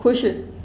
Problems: echo